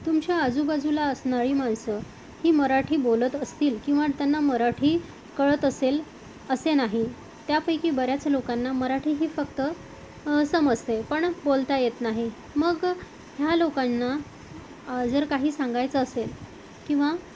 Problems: constant background noise, background conversations at intervals